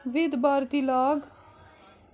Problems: constant background noise